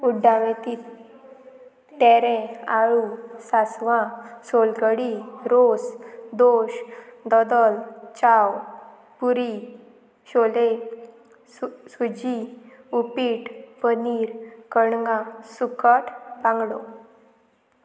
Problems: constant background noise